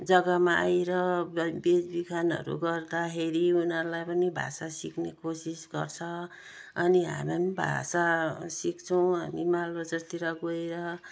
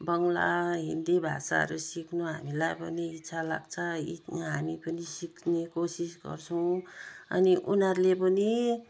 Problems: none marked